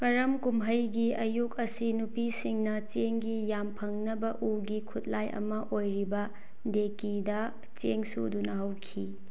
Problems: low volume